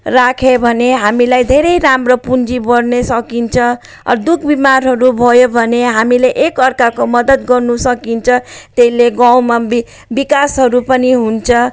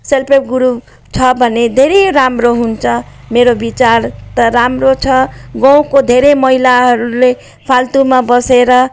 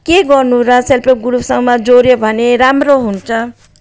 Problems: none marked